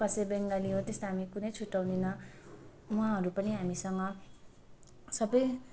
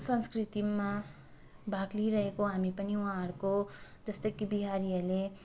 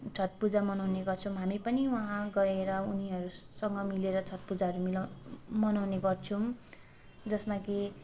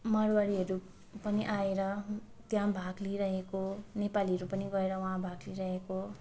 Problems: background sounds at intervals